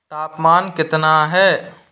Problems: echo